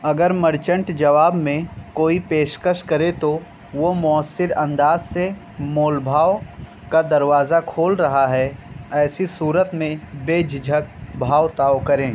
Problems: constant background noise